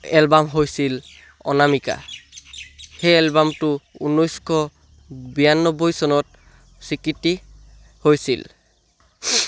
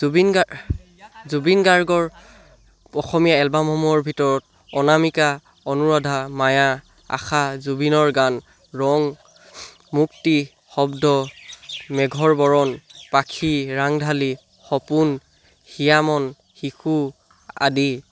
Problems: background sounds at intervals